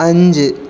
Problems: none marked